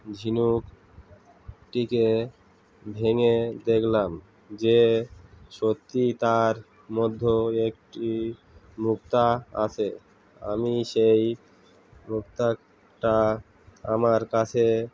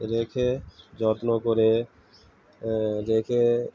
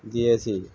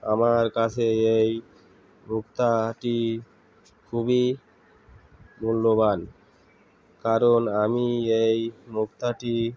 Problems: constant background noise